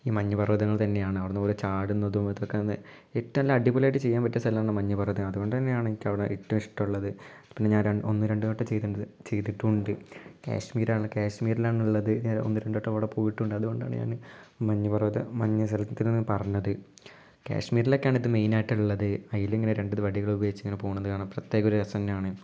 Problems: low volume